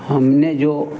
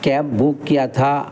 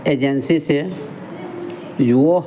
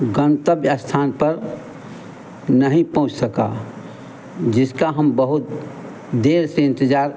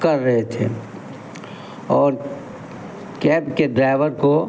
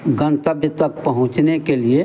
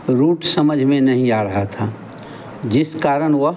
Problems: none marked